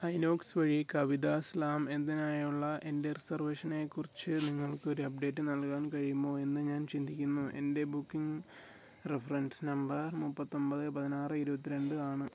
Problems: low volume